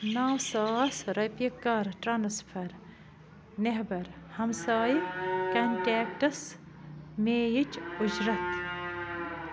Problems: constant background noise